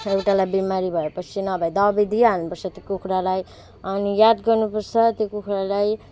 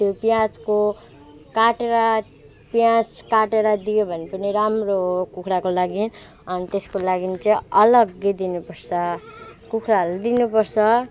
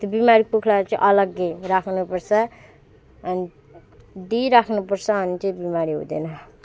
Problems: background sounds at intervals